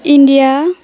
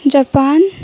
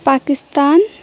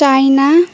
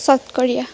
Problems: constant background noise, continuous background conversations